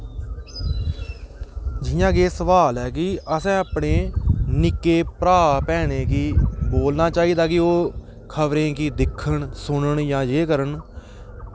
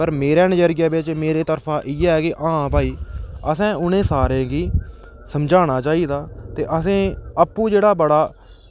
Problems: background sounds at intervals